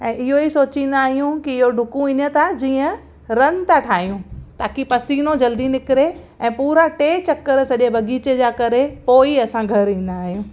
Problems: constant background noise, echo